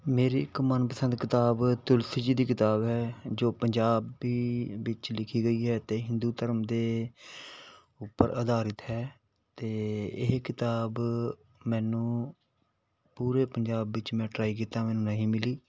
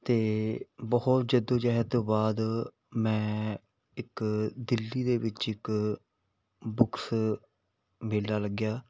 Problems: background sounds at intervals